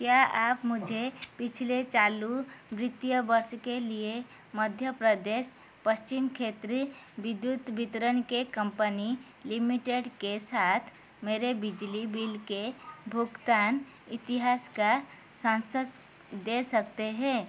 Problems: constant background noise